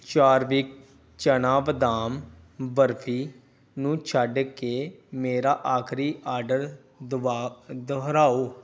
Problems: none marked